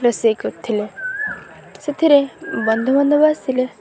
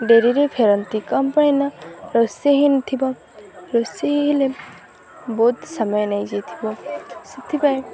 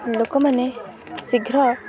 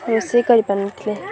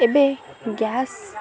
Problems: constant background noise, continuous background conversations